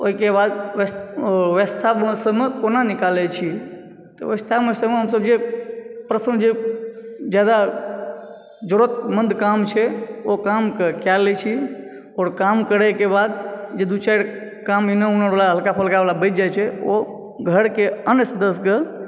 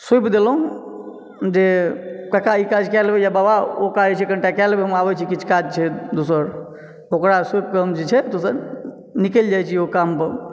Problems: none marked